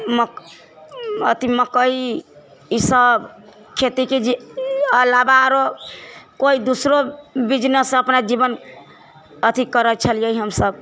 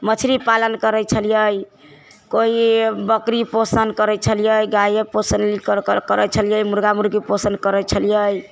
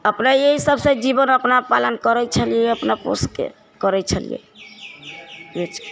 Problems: low volume